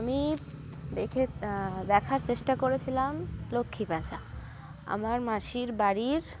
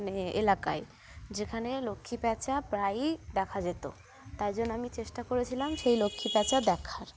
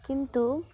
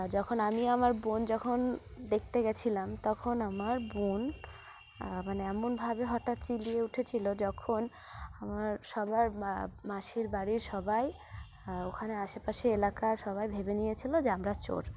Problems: constant background noise